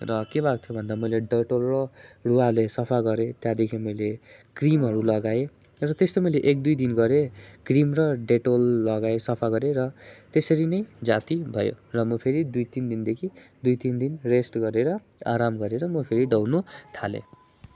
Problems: none marked